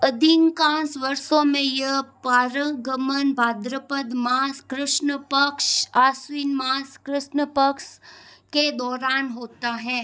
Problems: background sounds at intervals